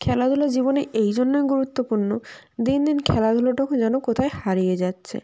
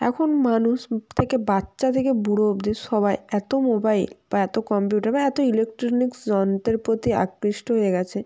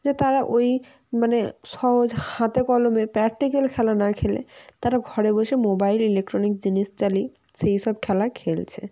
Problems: none marked